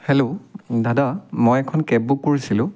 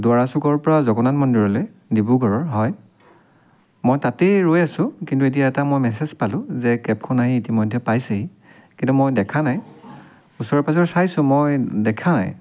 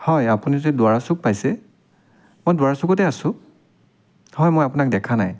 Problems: none marked